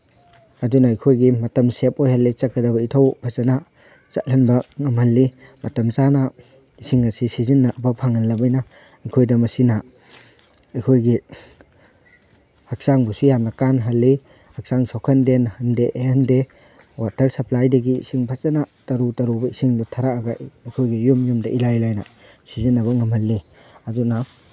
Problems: none marked